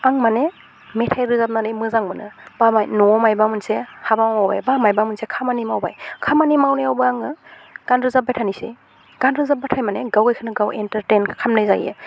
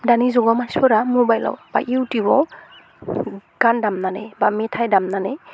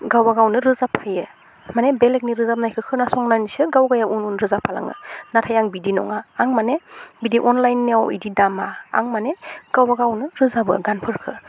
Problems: constant background noise